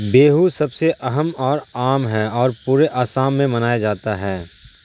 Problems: none marked